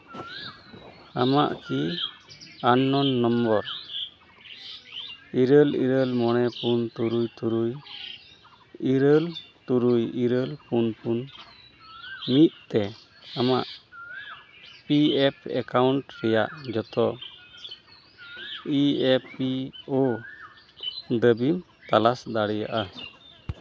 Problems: background sounds at intervals, background conversations at intervals